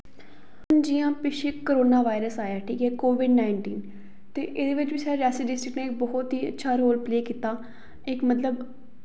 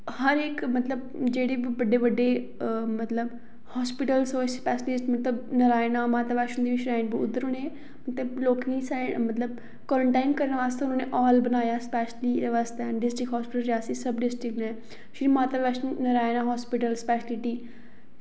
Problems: echo